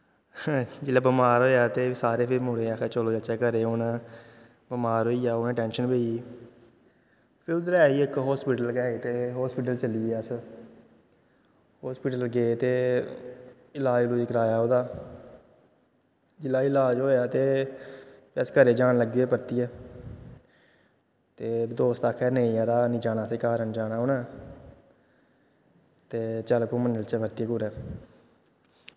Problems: constant background noise, echo